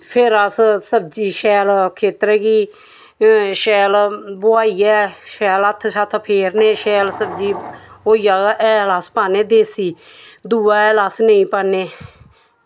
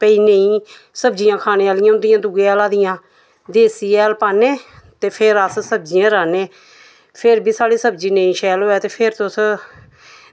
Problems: none marked